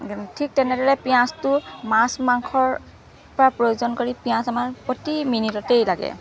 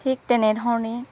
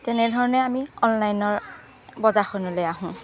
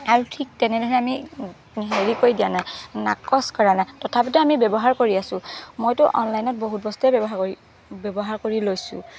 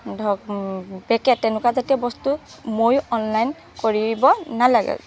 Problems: none marked